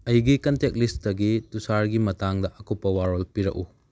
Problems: none marked